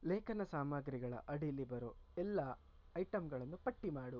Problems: low volume